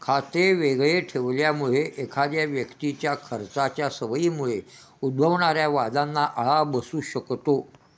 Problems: constant background noise